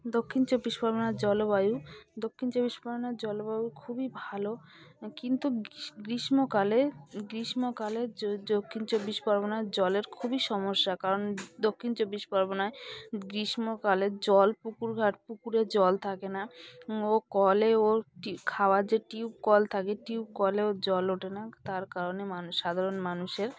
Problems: background sounds at intervals, continuous background conversations